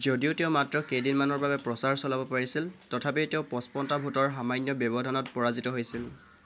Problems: constant background noise